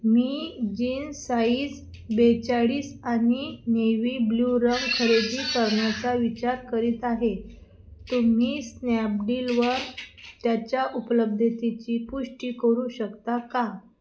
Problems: none marked